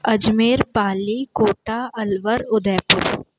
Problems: none marked